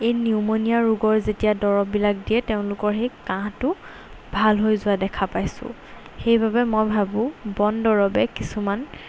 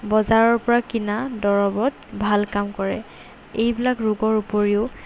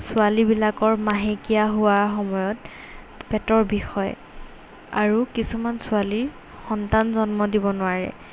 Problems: none marked